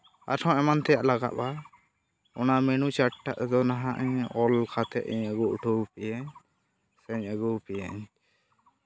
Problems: background sounds at intervals